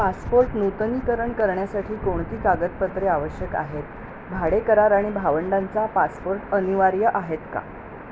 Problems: constant background noise